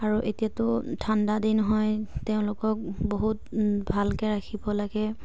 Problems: none marked